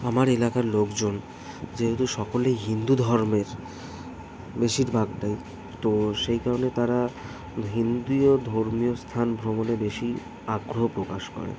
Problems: none marked